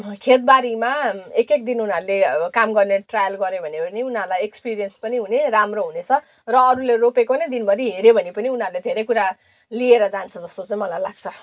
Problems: background sounds at intervals